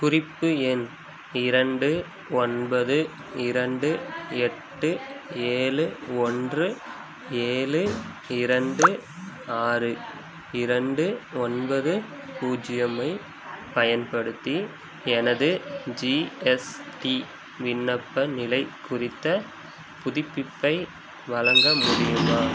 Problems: constant background noise